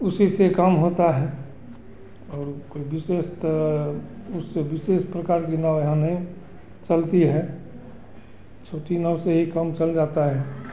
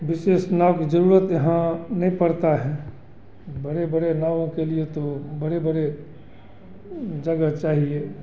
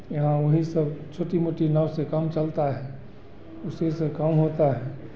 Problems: none marked